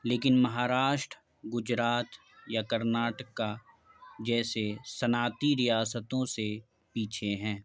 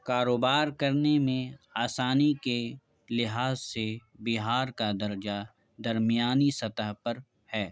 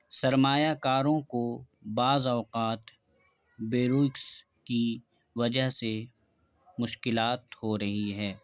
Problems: background sounds at intervals, background conversations at intervals